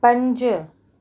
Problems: background sounds at intervals